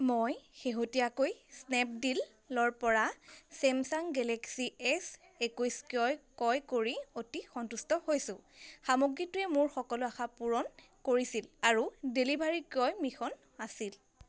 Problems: constant background noise